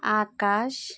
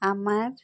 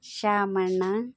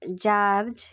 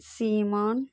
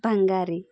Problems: none marked